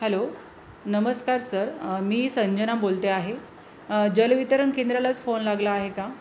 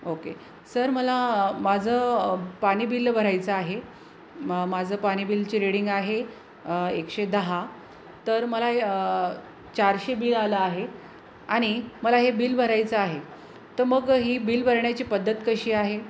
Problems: constant background noise